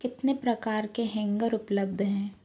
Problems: background sounds at intervals